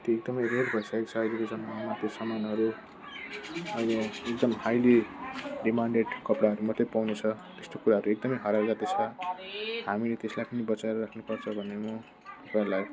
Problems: constant background noise